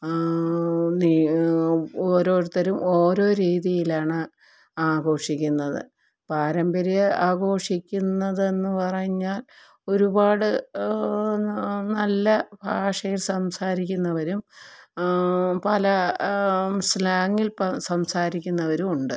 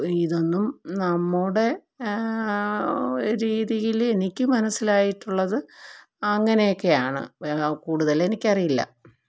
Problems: low volume